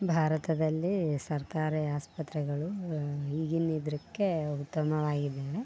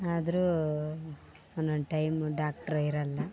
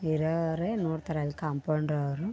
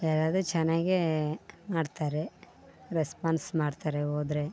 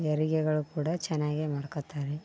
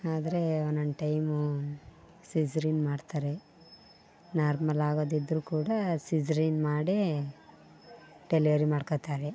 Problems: background sounds at intervals